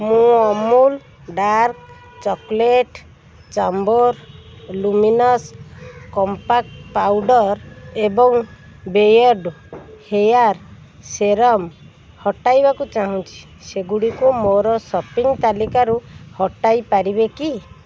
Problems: constant background noise